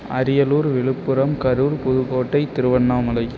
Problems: constant background noise